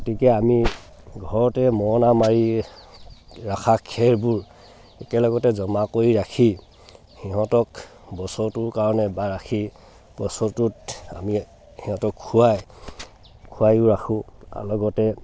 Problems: background sounds at intervals